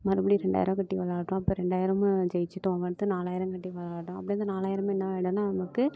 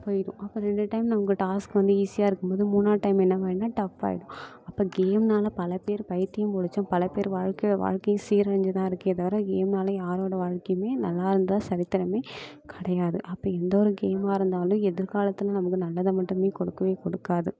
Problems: none marked